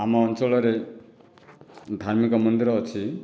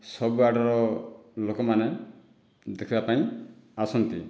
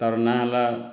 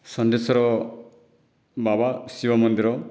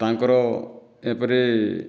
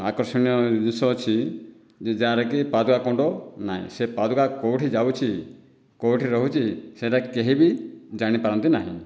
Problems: none marked